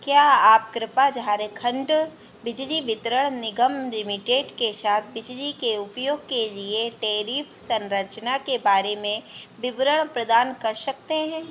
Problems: none marked